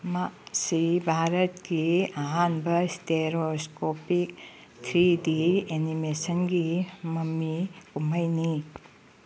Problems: none marked